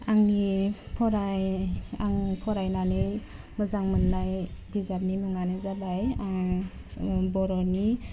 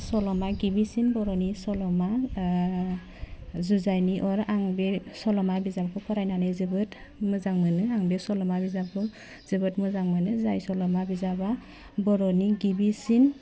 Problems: none marked